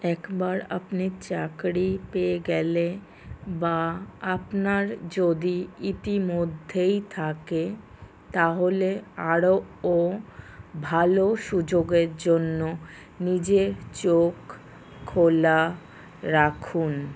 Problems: none marked